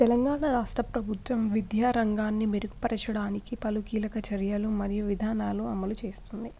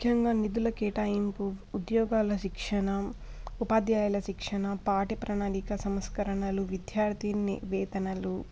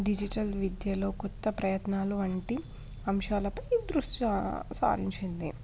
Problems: constant background noise, background conversations at intervals